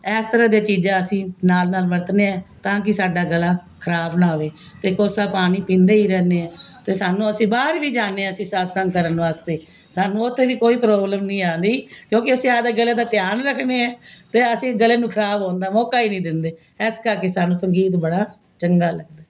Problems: constant background noise